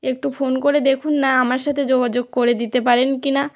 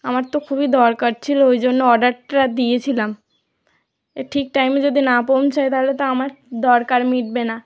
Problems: background sounds at intervals